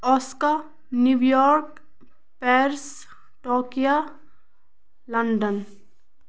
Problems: none marked